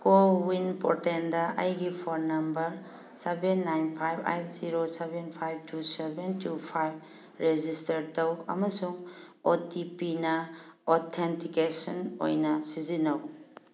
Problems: none marked